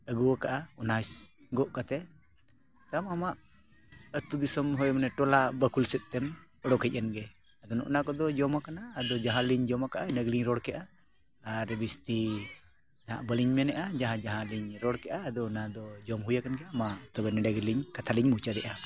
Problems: continuous background conversations